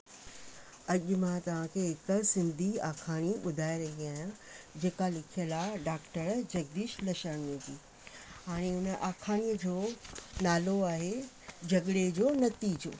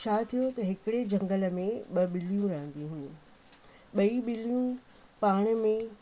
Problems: constant background noise